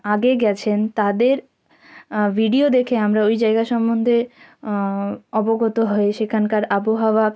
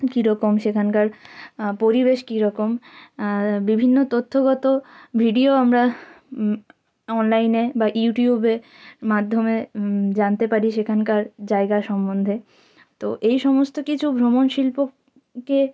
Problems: background sounds at intervals